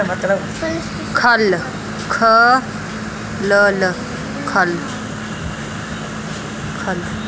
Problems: constant background noise, background conversations at intervals